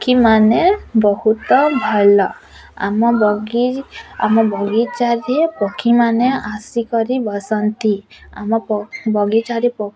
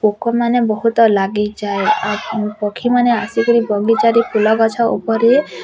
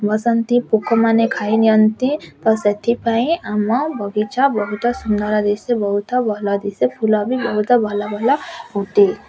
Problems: constant background noise, continuous background conversations